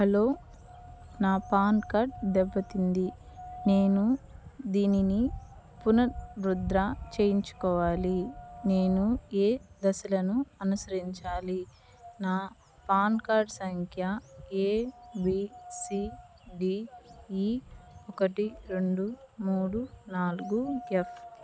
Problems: none marked